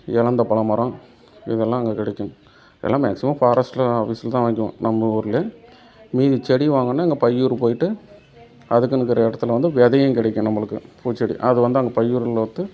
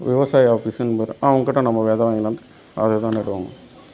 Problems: none marked